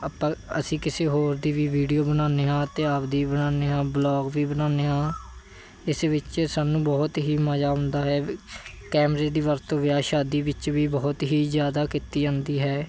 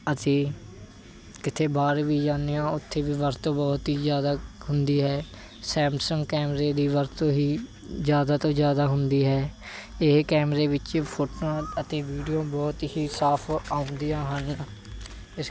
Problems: none marked